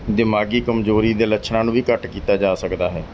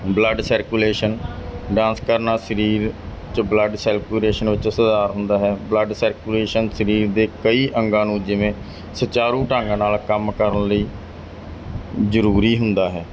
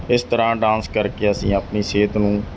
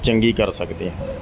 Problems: background conversations at intervals